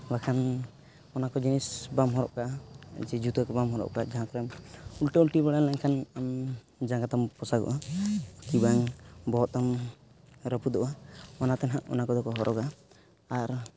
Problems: constant background noise